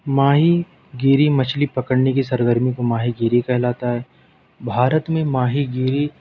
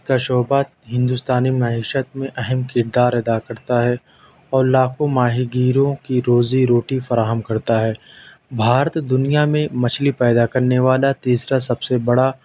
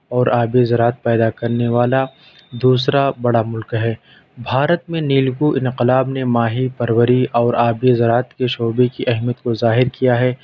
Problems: none marked